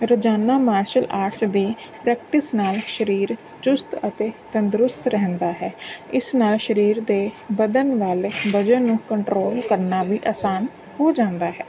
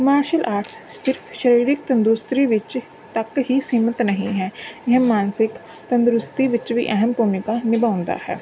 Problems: none marked